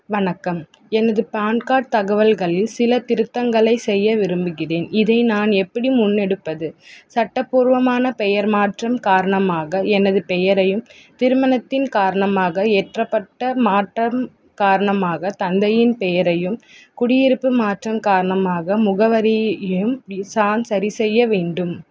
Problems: constant background noise